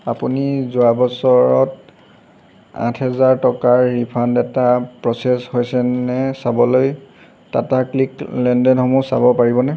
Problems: none marked